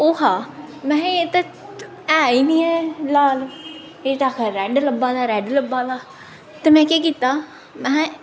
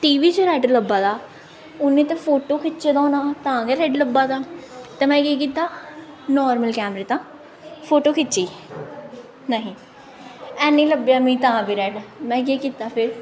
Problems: none marked